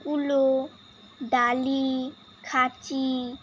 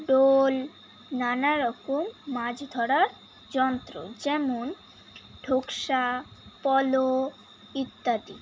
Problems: constant background noise